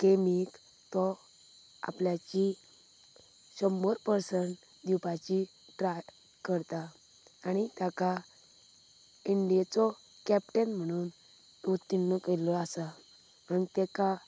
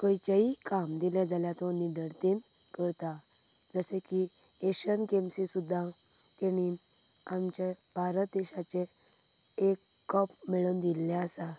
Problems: none marked